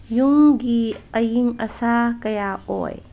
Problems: none marked